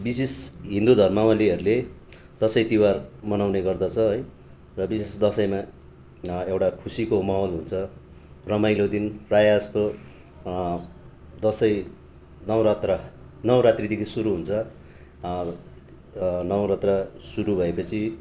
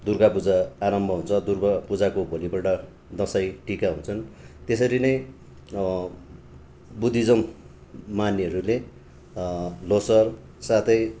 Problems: background sounds at intervals, background conversations at intervals